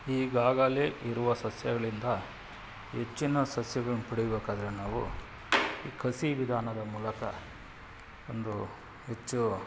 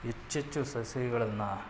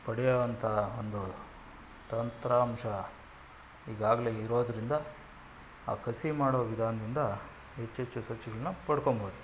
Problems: background sounds at intervals